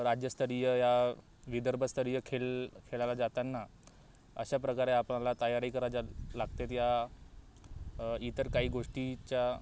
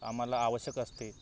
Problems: background sounds at intervals